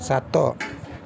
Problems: none marked